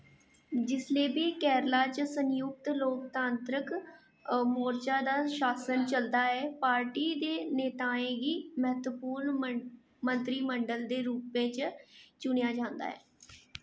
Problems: echo